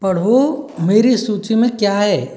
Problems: none marked